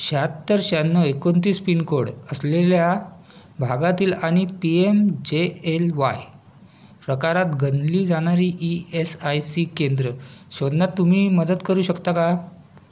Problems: constant background noise